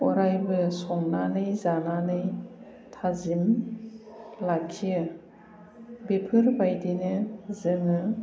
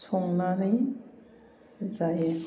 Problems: none marked